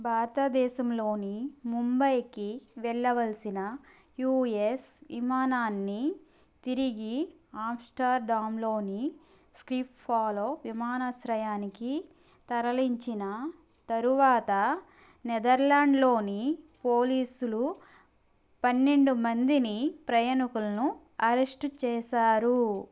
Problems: background sounds at intervals